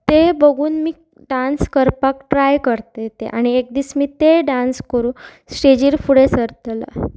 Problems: constant background noise